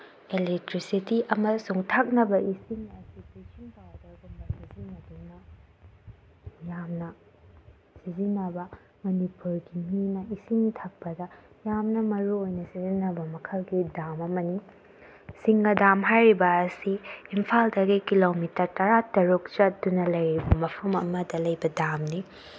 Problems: low volume